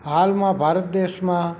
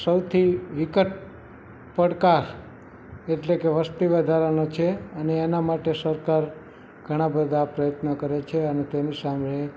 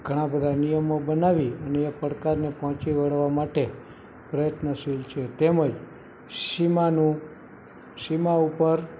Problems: background sounds at intervals, continuous background conversations